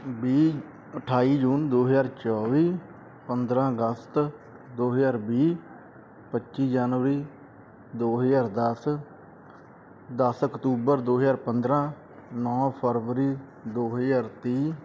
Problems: constant background noise